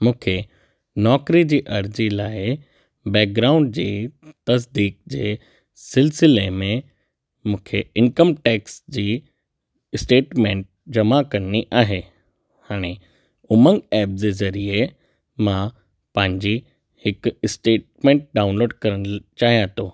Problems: none marked